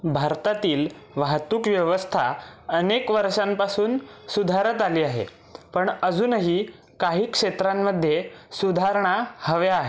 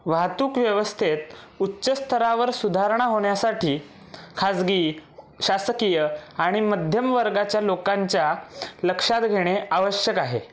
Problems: constant background noise, background conversations at intervals